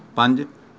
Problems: background conversations at intervals